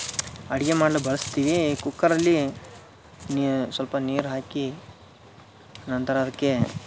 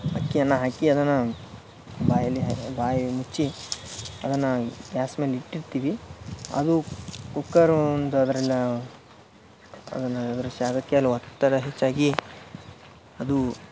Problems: background sounds at intervals